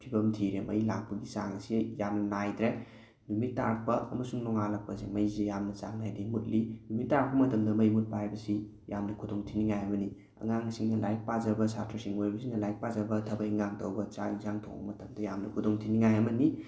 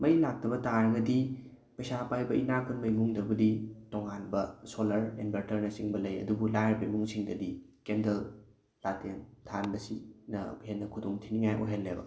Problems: background sounds at intervals